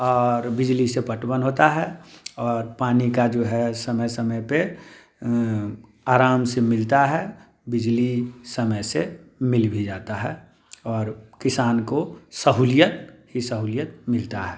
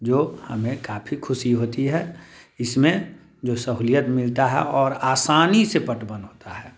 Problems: none marked